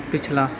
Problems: none marked